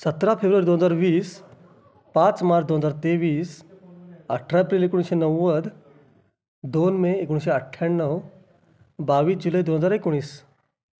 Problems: background sounds at intervals